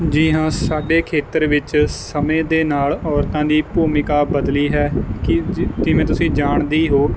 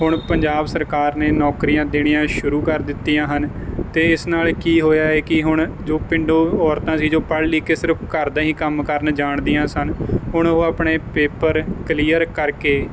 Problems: background sounds at intervals